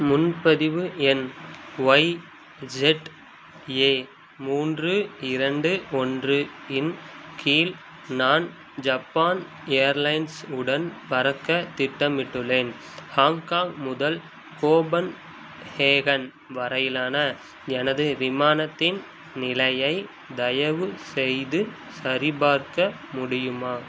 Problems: constant background noise